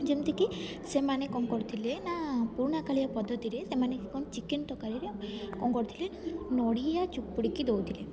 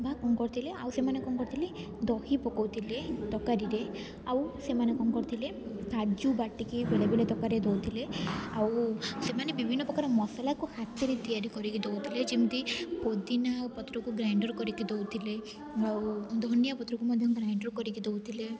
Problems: constant background noise, continuous background conversations